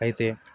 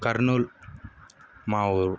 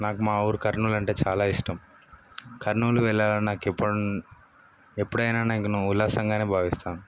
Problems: background sounds at intervals